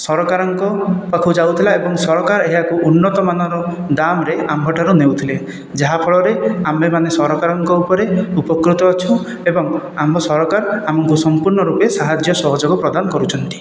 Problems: none marked